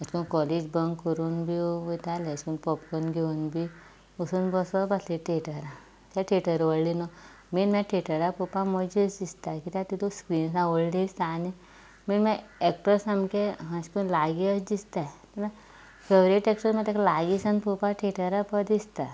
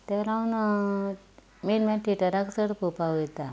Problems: background sounds at intervals